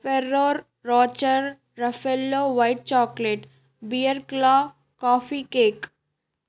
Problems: none marked